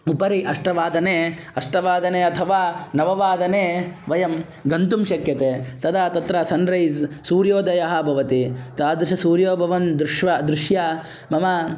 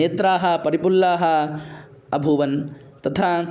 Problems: background conversations at intervals